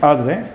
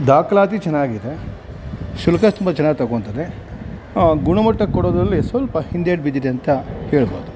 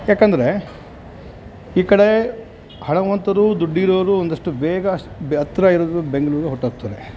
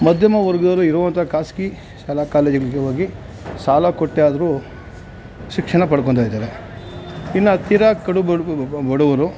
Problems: background sounds at intervals